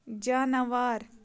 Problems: background sounds at intervals